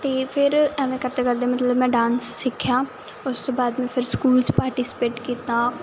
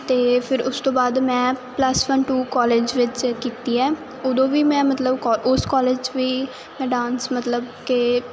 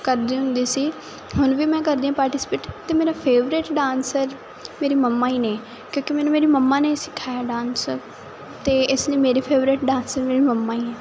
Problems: continuous background conversations